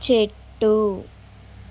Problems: none marked